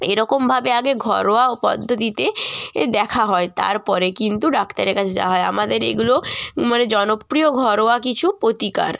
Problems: none marked